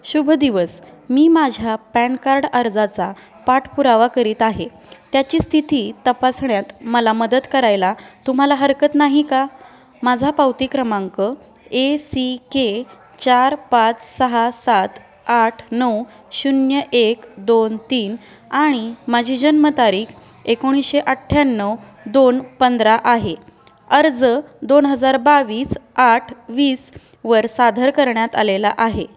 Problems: constant background noise